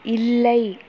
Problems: constant background noise